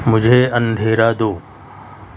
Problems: constant background noise